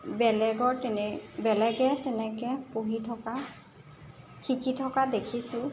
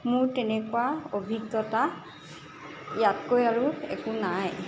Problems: constant background noise